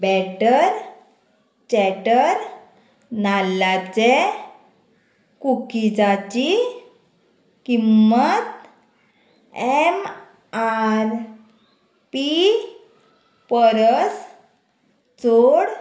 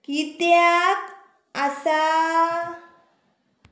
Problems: none marked